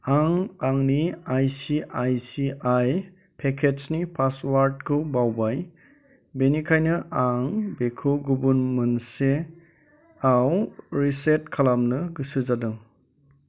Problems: constant background noise